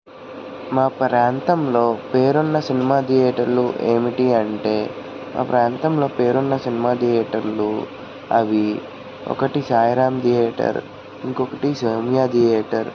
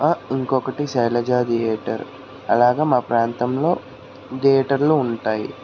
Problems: none marked